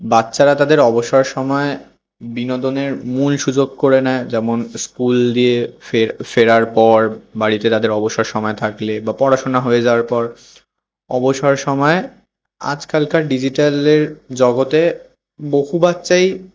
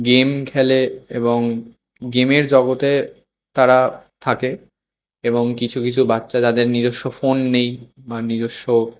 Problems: none marked